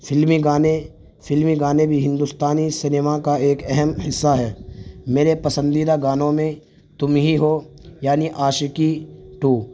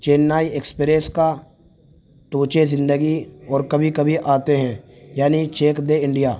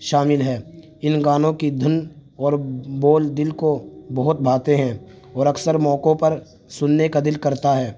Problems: constant background noise